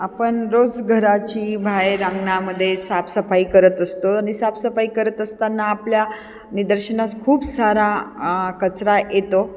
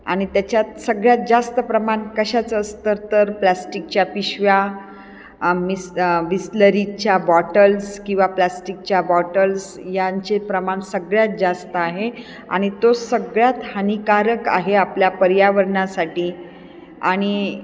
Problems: none marked